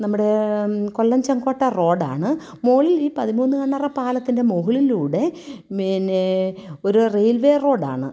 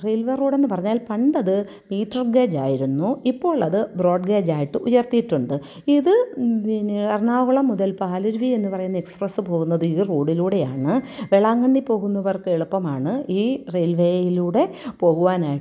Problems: none marked